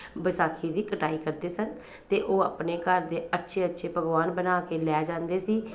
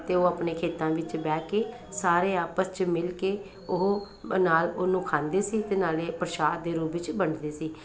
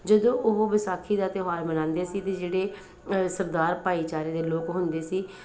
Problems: none marked